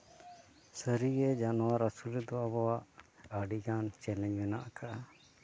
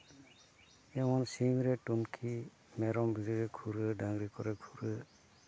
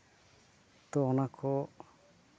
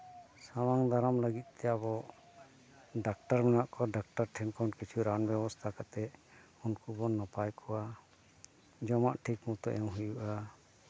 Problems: none marked